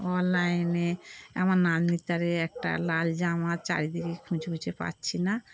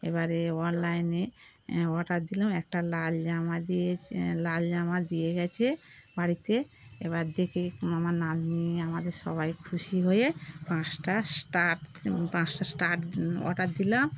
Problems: constant background noise